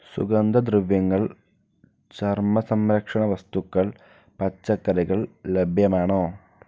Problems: low volume